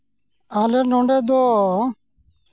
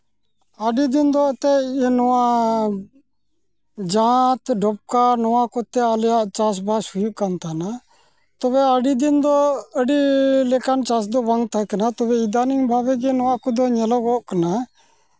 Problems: background sounds at intervals